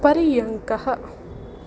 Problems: none marked